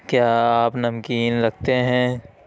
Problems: constant background noise